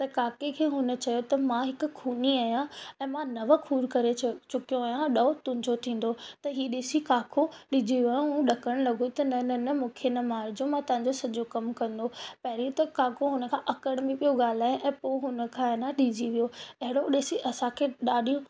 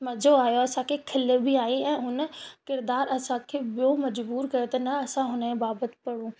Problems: constant background noise, echo